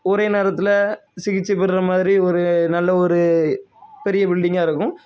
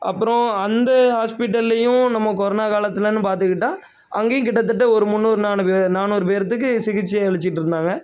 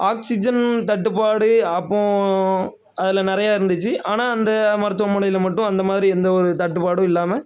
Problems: constant background noise